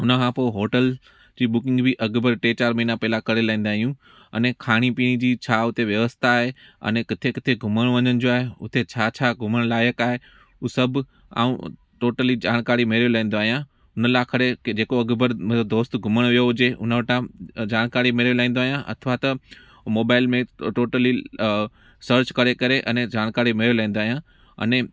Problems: background sounds at intervals